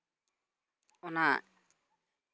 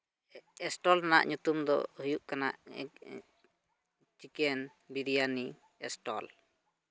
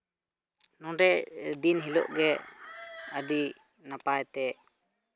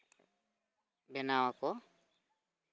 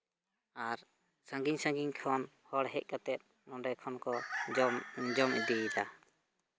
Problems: background sounds at intervals